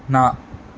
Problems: none marked